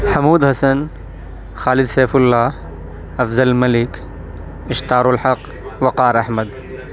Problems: constant background noise, background conversations at intervals